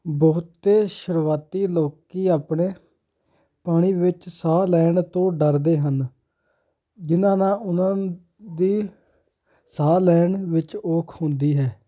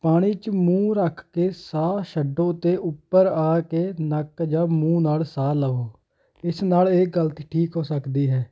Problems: constant background noise